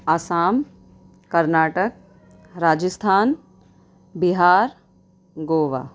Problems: none marked